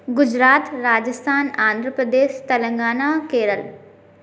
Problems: constant background noise